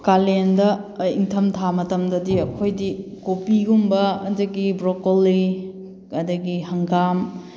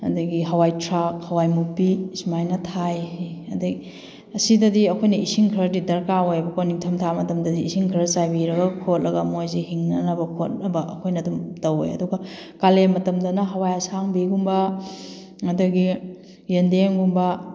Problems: background sounds at intervals